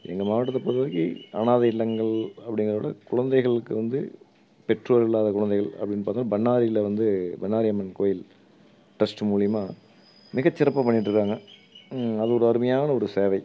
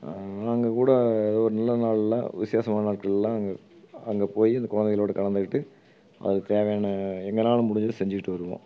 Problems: background sounds at intervals